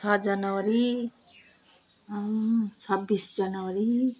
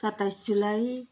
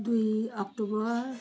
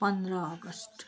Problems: background sounds at intervals